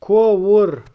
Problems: none marked